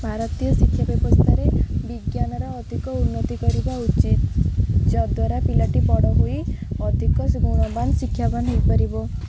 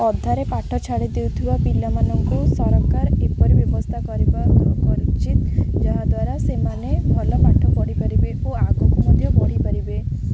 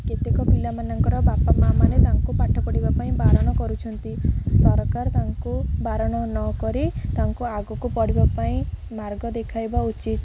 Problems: none marked